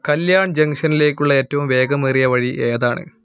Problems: background sounds at intervals